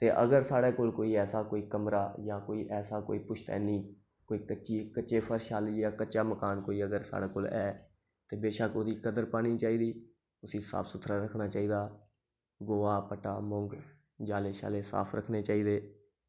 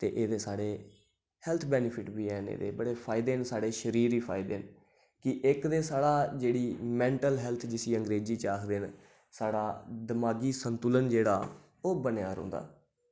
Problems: none marked